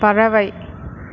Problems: constant background noise